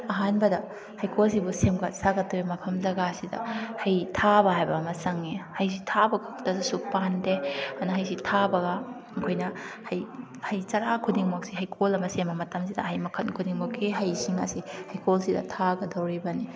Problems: background conversations at intervals